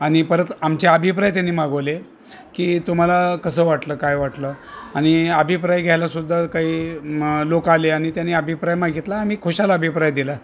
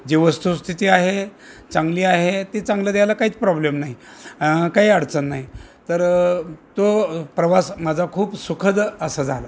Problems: none marked